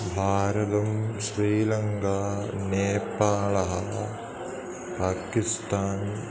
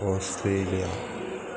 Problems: constant background noise